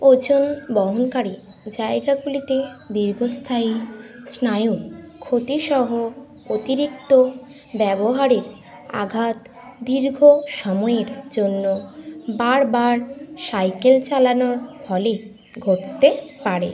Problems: constant background noise, continuous background conversations